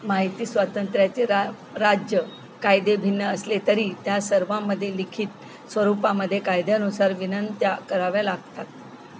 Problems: constant background noise